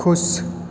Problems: constant background noise, continuous background conversations